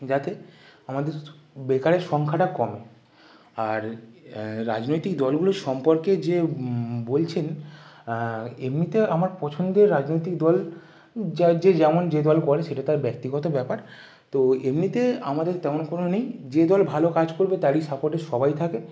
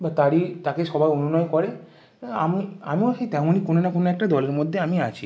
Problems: none marked